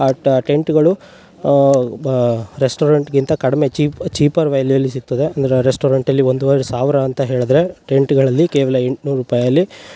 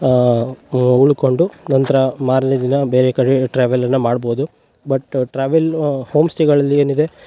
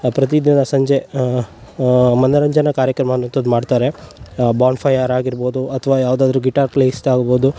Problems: background sounds at intervals